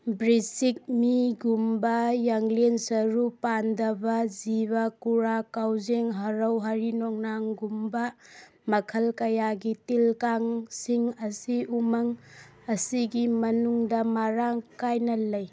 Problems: background conversations at intervals